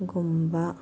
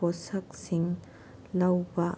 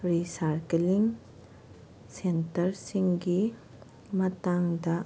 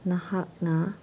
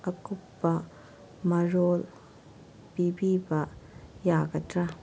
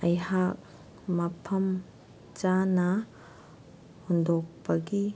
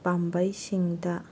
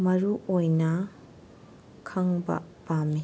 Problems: background sounds at intervals